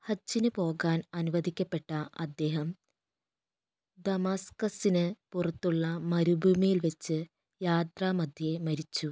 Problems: low volume